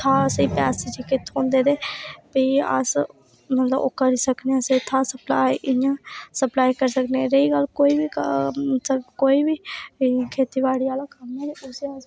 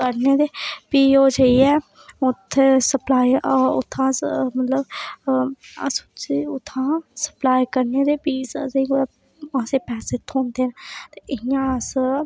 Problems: none marked